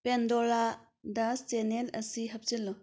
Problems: none marked